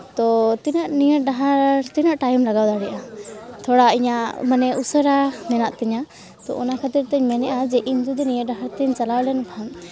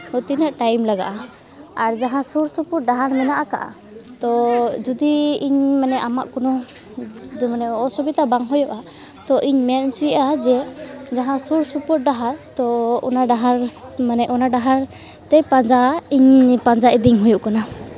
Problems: constant background noise, continuous background conversations